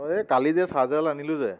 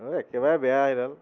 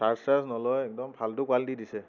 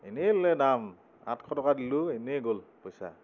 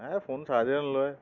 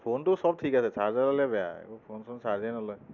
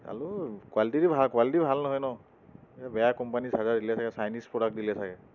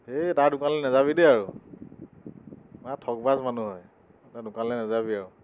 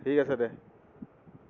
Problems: none marked